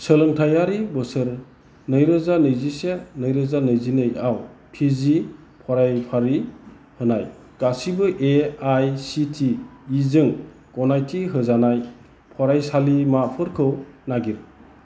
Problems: constant background noise